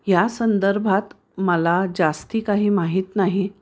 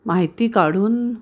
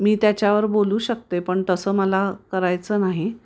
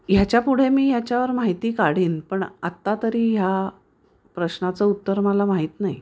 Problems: background sounds at intervals